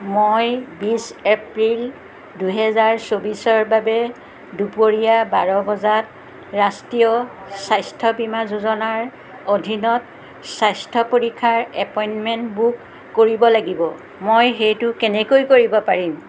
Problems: constant background noise, background conversations at intervals